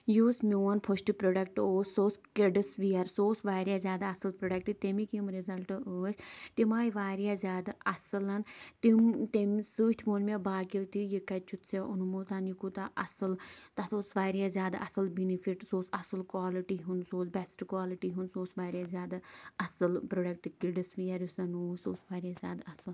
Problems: none marked